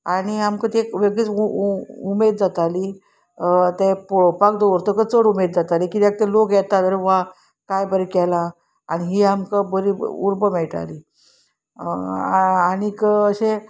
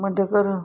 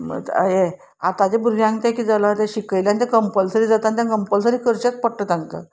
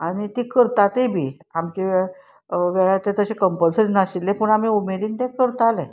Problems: none marked